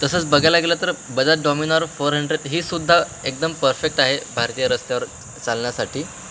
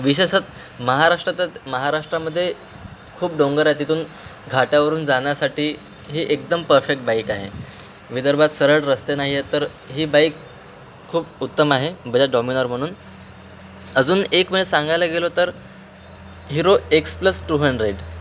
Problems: constant background noise